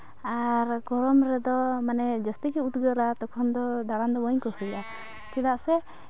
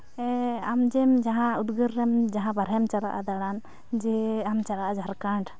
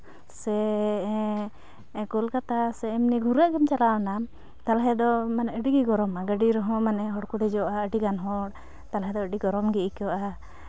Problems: none marked